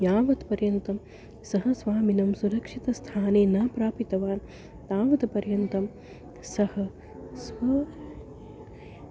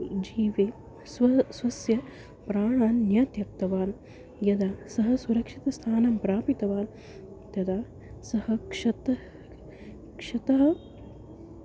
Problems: constant background noise